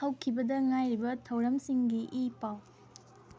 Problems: background sounds at intervals